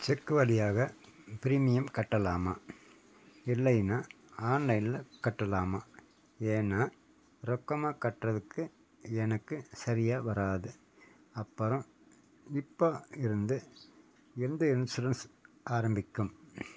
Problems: background sounds at intervals